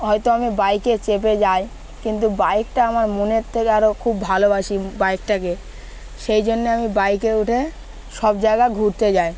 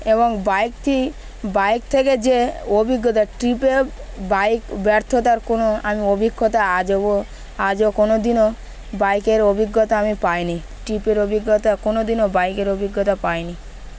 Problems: constant background noise, background conversations at intervals